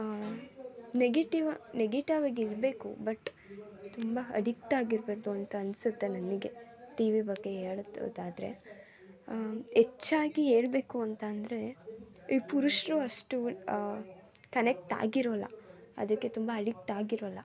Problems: none marked